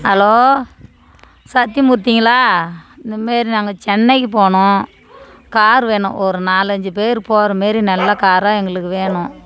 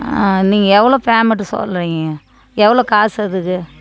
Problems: background conversations at intervals